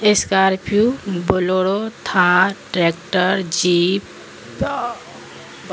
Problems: constant background noise